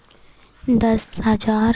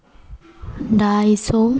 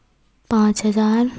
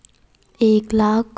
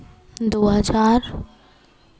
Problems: background sounds at intervals